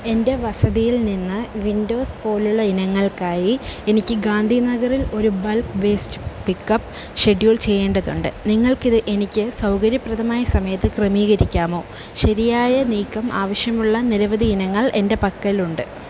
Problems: constant background noise